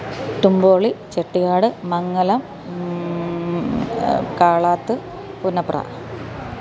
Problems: none marked